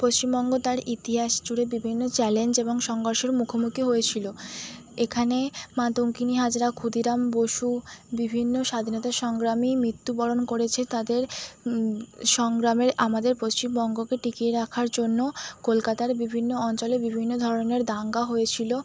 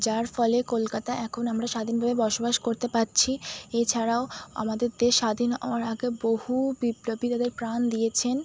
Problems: none marked